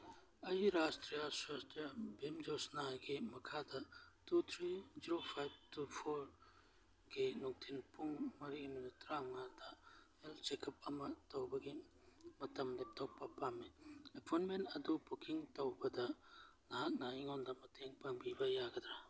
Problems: background sounds at intervals